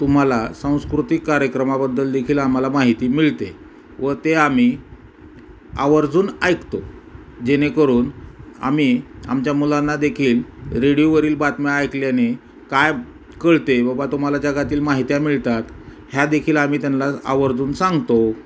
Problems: constant background noise